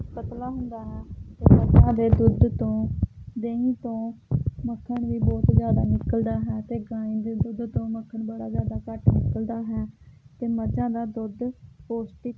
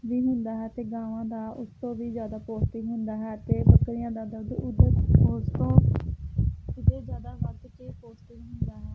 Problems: none marked